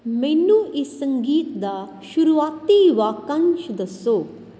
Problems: none marked